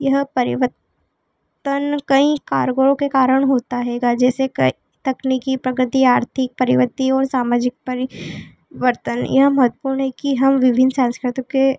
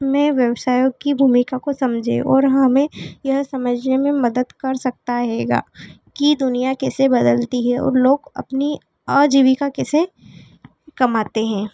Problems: constant background noise, background conversations at intervals